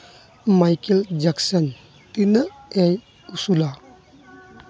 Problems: constant background noise, background conversations at intervals